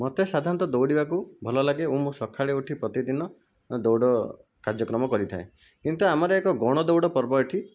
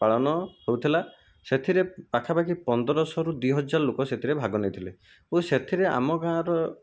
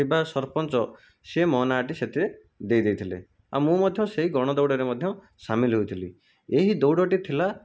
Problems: none marked